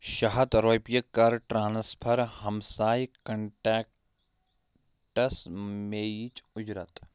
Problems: none marked